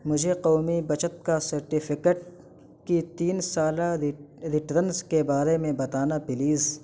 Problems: constant background noise